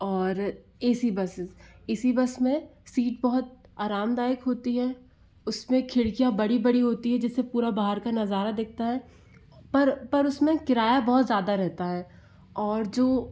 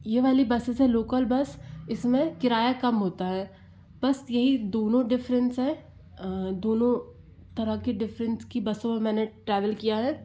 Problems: none marked